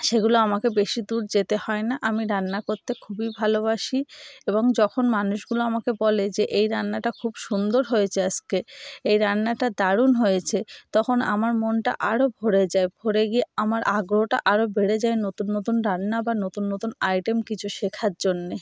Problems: background sounds at intervals